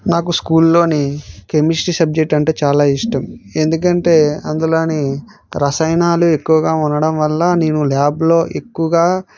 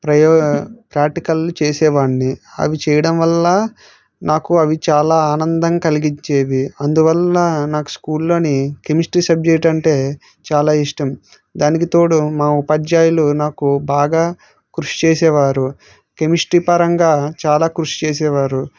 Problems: none marked